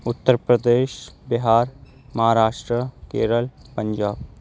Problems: background sounds at intervals